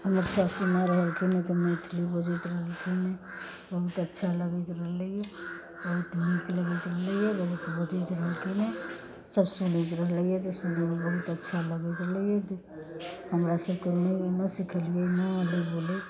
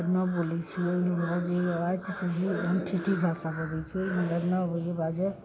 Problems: constant background noise